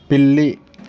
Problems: constant background noise